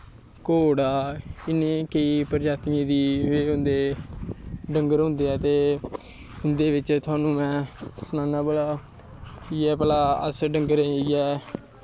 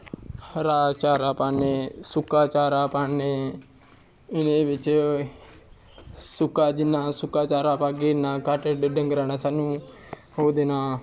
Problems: none marked